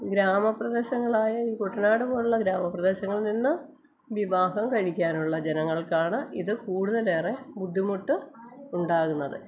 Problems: constant background noise, background conversations at intervals, low volume